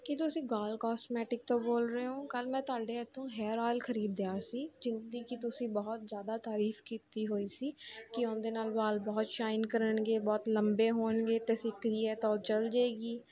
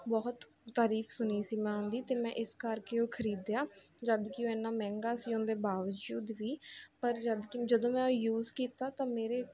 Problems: continuous background conversations